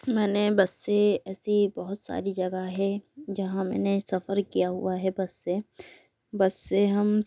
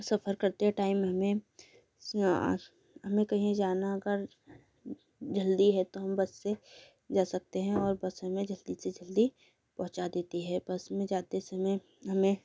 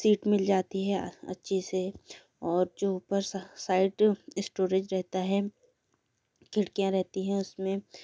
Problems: none marked